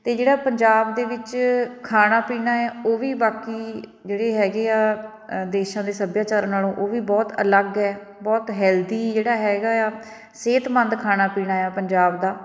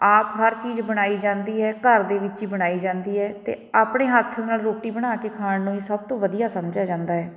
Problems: background conversations at intervals